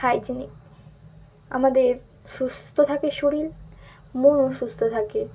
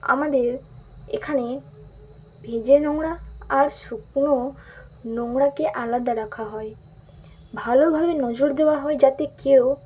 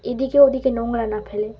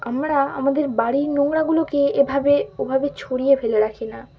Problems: constant background noise